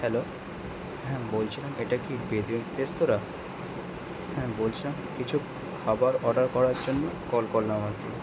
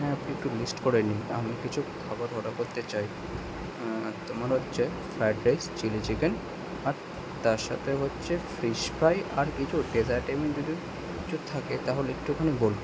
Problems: constant background noise